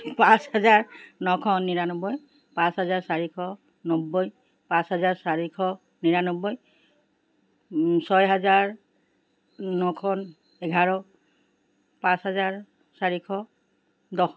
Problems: none marked